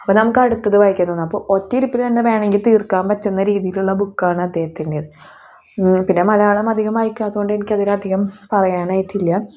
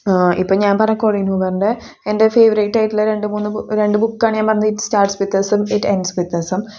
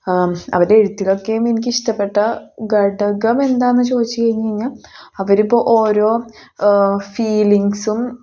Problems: none marked